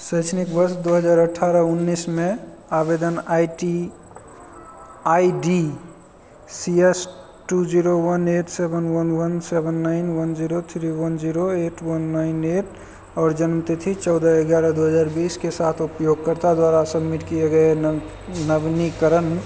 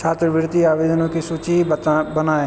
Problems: none marked